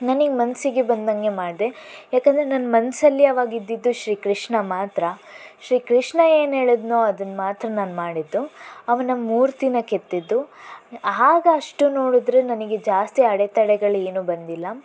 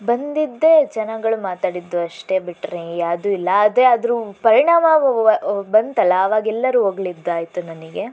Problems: constant background noise